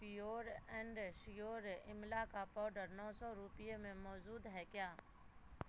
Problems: constant background noise